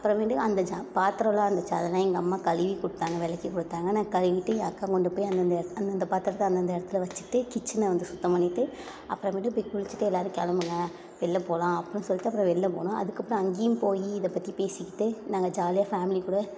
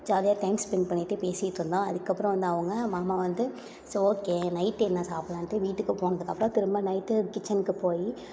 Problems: low volume